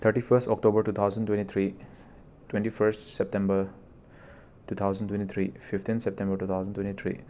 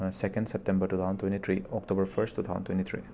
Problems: background sounds at intervals